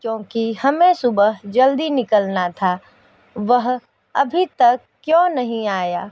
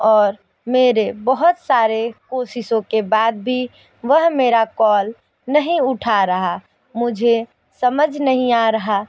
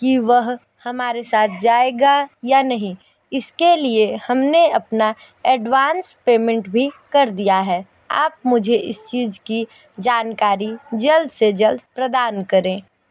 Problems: background sounds at intervals